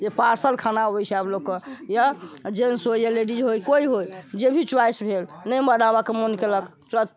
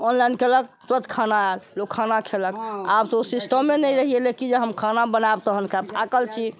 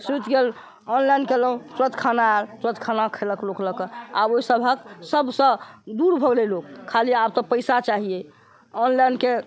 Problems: background conversations at intervals